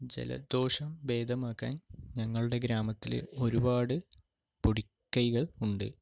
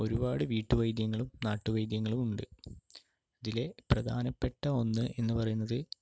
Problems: none marked